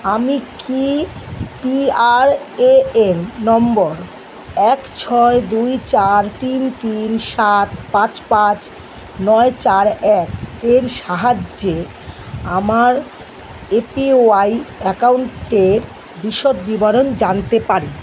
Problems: constant background noise